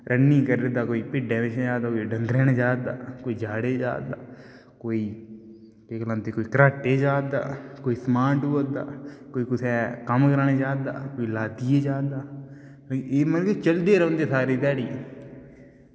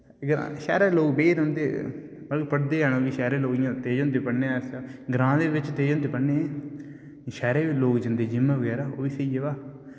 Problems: background sounds at intervals, echo